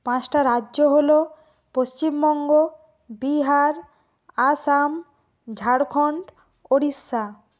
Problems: constant background noise